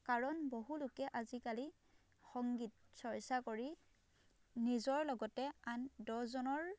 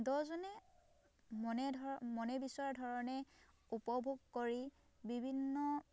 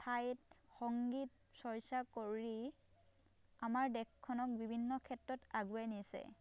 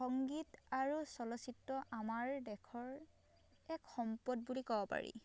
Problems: background sounds at intervals